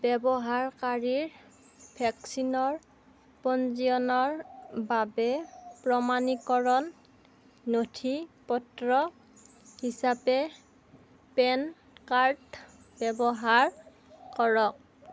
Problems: constant background noise